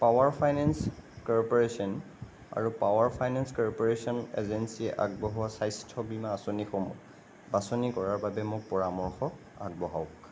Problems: constant background noise